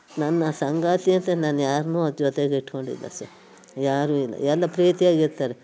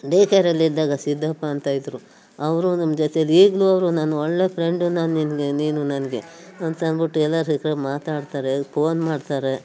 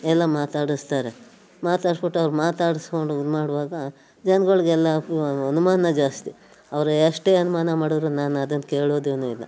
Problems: background sounds at intervals